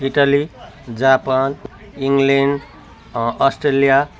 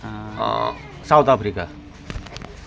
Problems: continuous background conversations